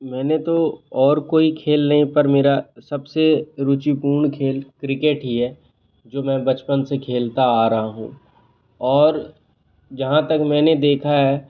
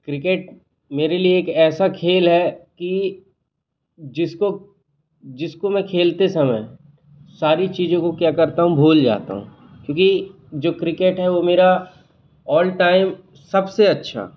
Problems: constant background noise, background conversations at intervals